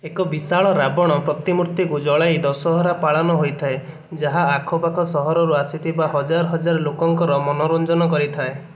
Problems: none marked